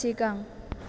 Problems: none marked